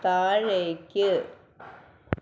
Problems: background sounds at intervals